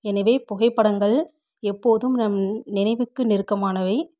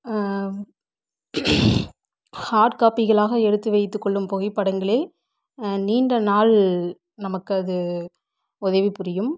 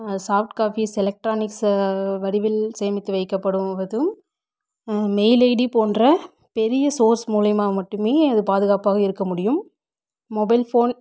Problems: background sounds at intervals